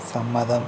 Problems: constant background noise